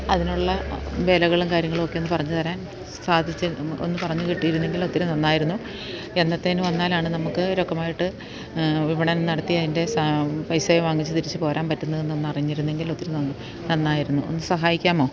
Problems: constant background noise